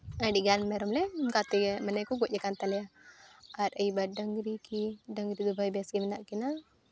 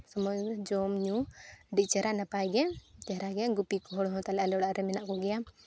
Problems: constant background noise